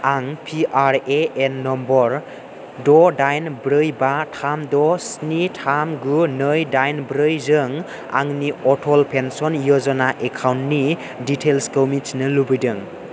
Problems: constant background noise